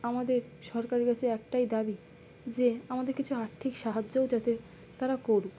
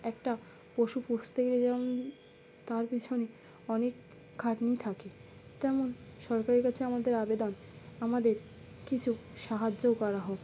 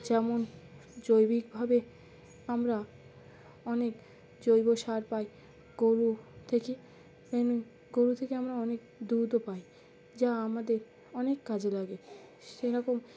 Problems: constant background noise